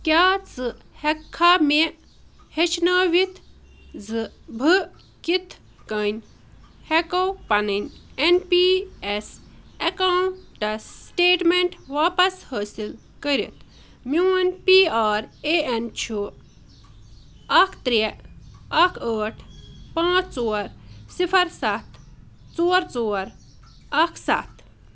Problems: none marked